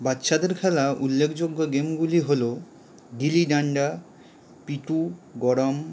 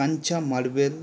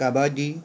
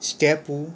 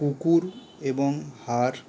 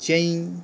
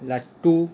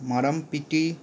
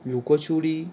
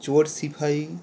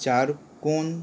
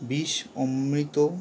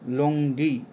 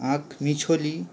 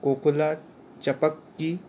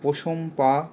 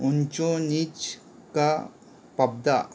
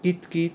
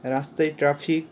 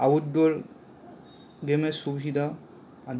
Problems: constant background noise